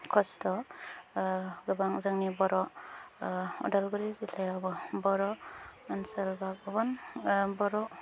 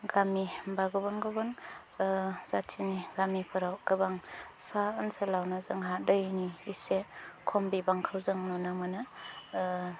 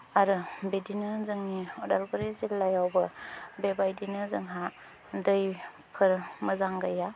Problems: low volume